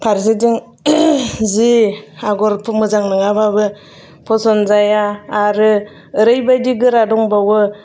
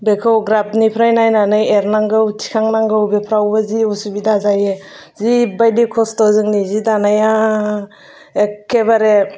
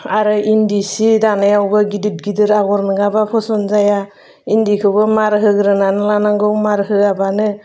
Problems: none marked